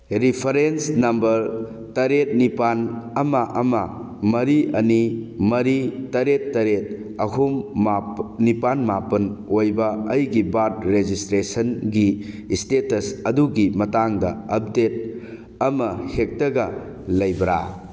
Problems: none marked